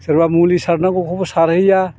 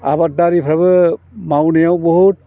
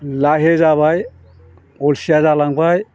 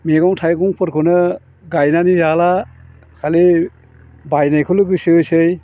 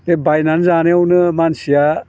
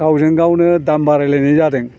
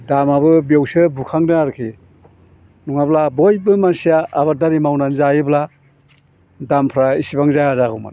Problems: low volume